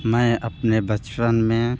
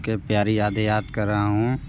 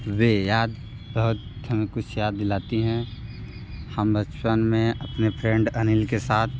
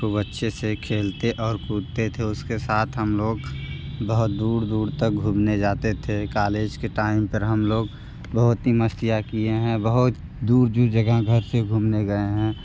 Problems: constant background noise